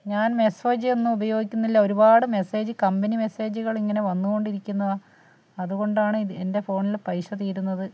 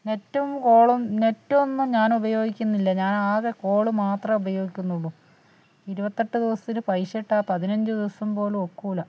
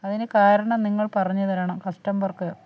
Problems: none marked